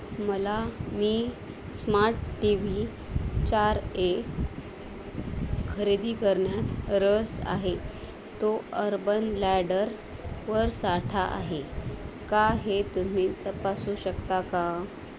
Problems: constant background noise